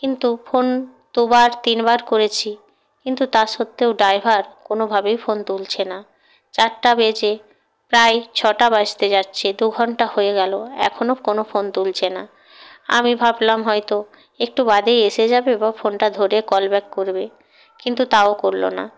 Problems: background sounds at intervals